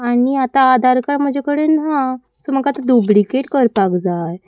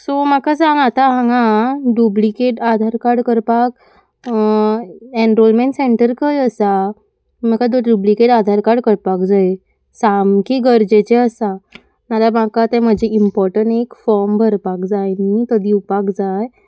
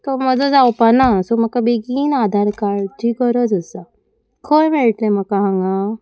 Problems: constant background noise